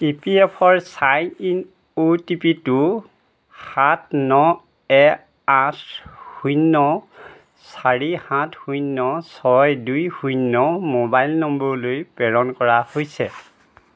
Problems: none marked